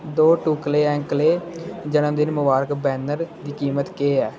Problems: constant background noise